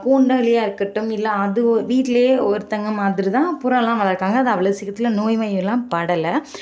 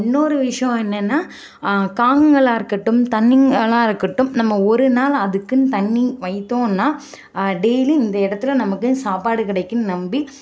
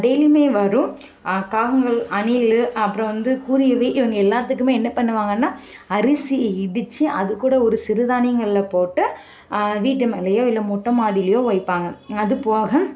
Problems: constant background noise